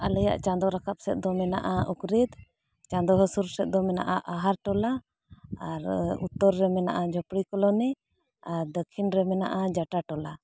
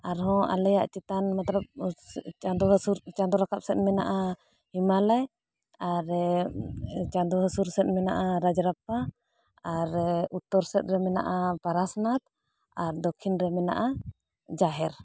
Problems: none marked